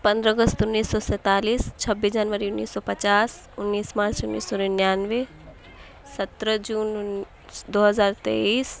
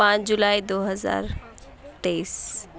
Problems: none marked